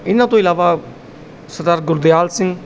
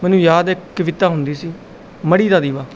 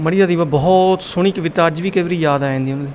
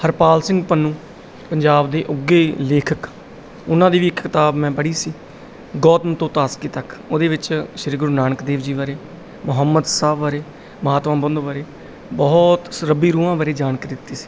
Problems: background sounds at intervals